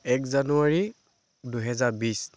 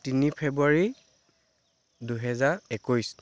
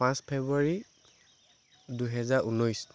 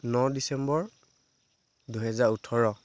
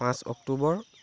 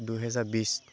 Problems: constant background noise